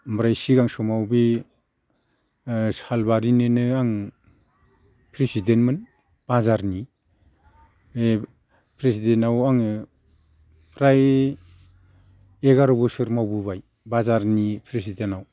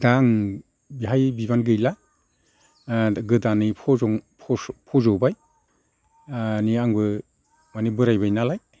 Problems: constant background noise